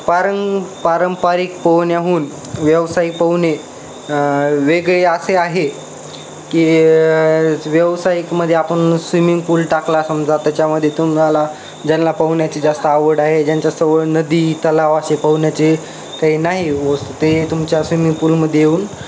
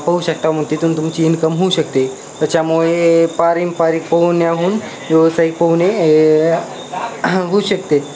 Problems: constant background noise, continuous background conversations